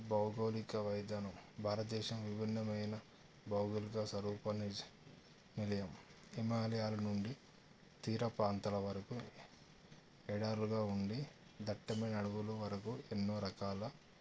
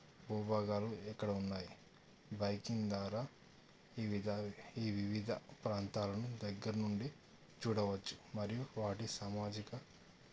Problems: low volume